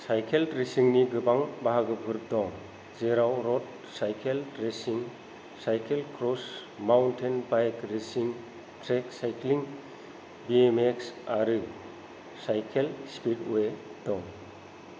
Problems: low volume